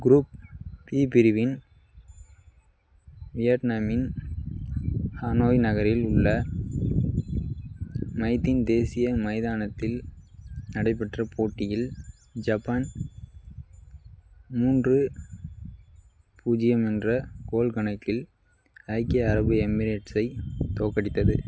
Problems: background sounds at intervals